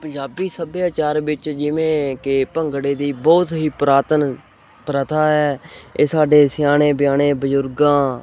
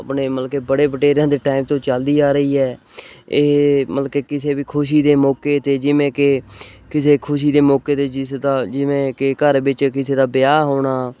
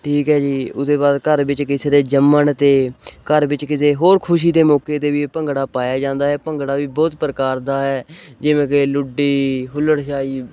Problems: none marked